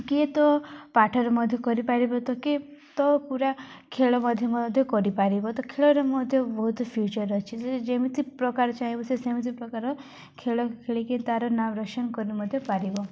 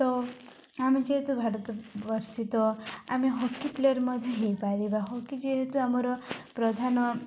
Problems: none marked